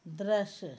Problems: low volume